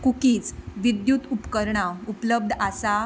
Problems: background sounds at intervals